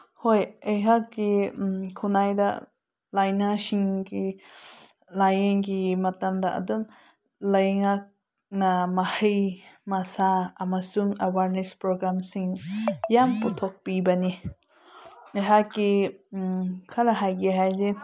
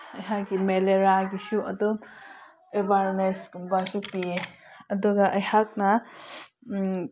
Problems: none marked